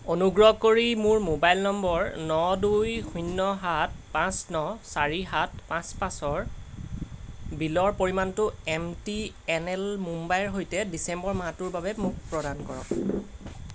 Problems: none marked